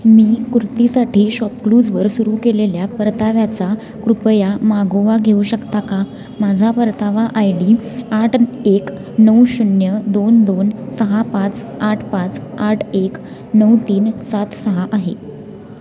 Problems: continuous background conversations